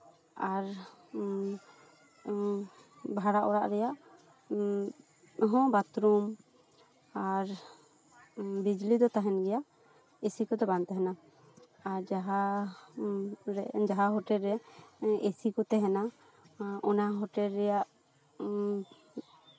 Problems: background conversations at intervals